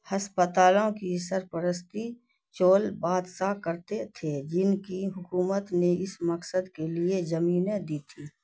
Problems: none marked